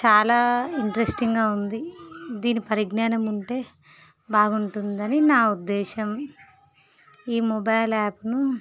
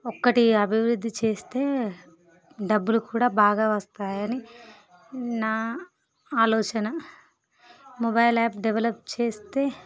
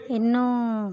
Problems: background sounds at intervals